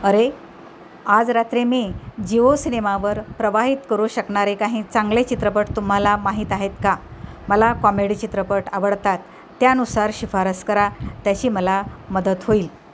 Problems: constant background noise